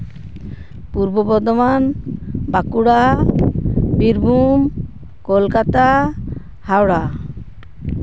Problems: constant background noise